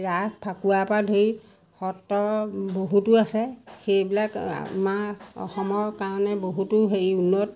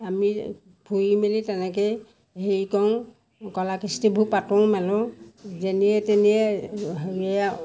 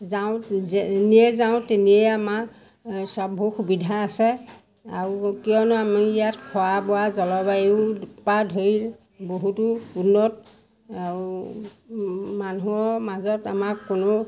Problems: constant background noise